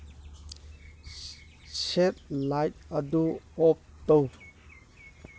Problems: none marked